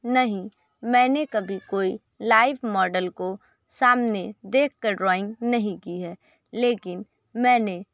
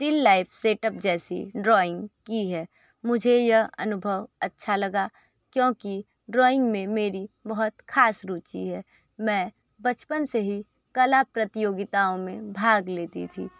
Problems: none marked